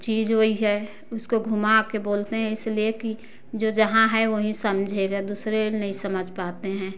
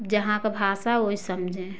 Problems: none marked